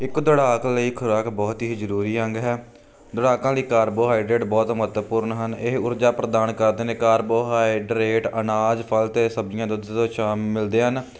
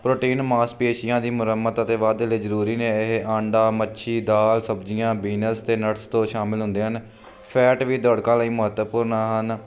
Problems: none marked